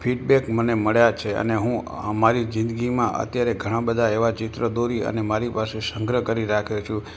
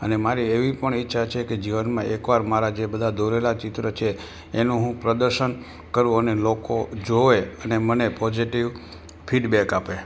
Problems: background sounds at intervals